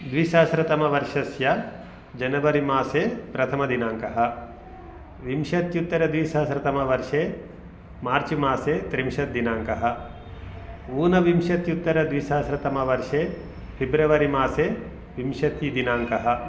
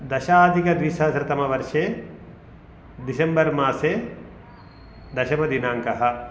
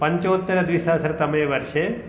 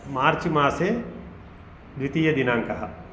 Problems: constant background noise